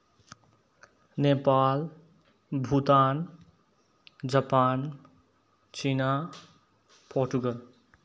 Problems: background sounds at intervals